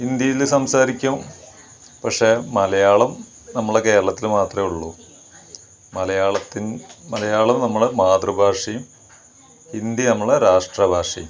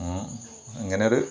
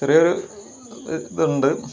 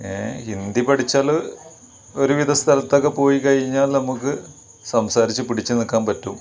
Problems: background sounds at intervals